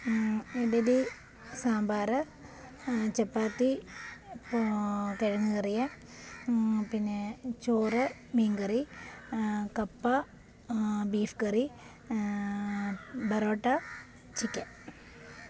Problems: constant background noise, low volume